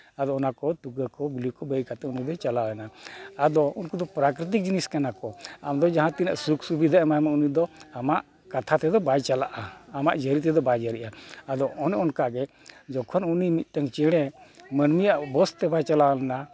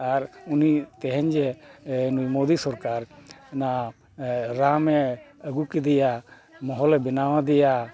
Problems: background sounds at intervals